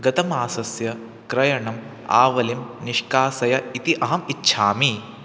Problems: constant background noise